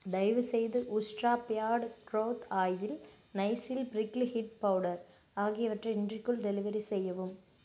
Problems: none marked